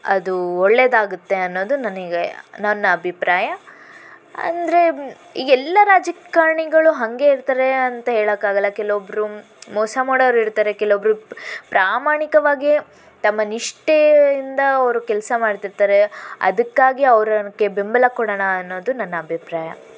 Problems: constant background noise